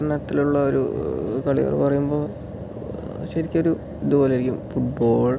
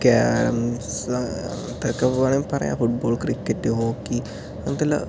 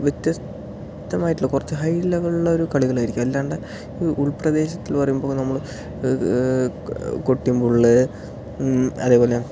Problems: low volume